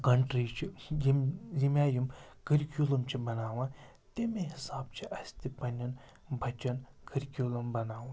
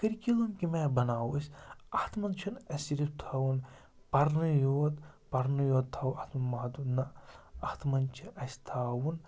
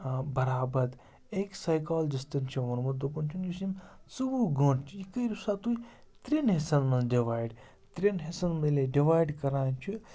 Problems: background sounds at intervals, background conversations at intervals